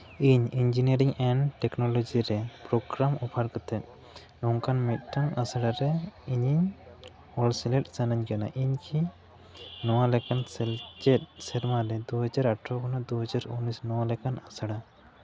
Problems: background conversations at intervals